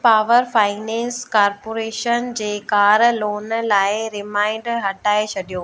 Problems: constant background noise